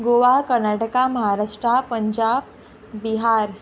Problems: background sounds at intervals